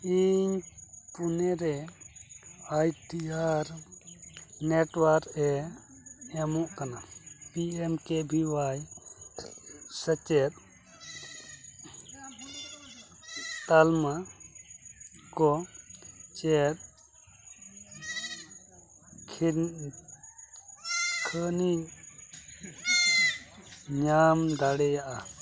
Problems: constant background noise